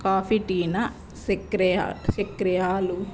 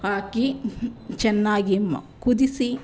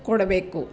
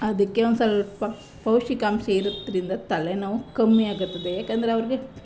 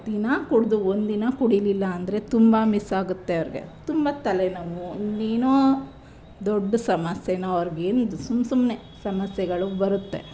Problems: background sounds at intervals